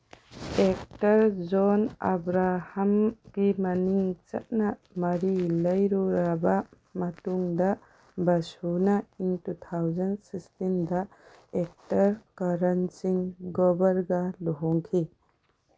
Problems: background sounds at intervals